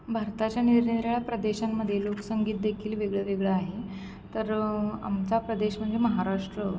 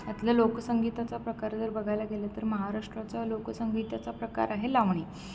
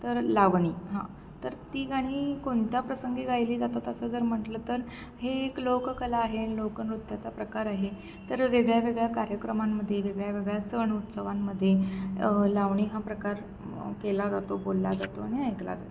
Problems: constant background noise